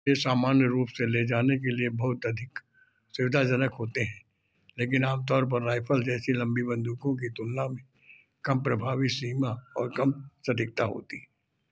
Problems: background sounds at intervals